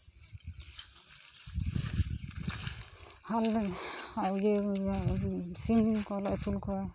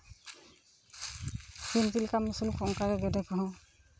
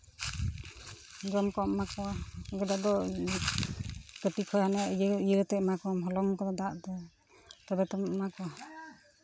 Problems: background sounds at intervals, continuous background conversations